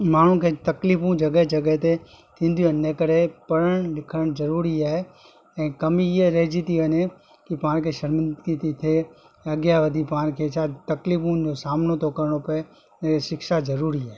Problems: constant background noise, echo